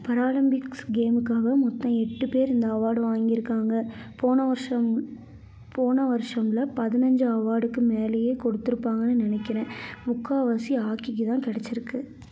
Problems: background sounds at intervals